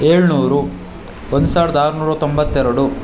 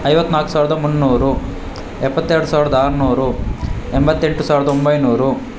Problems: constant background noise